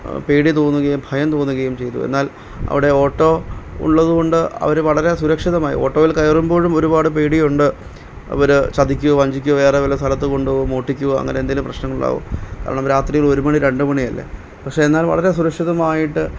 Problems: none marked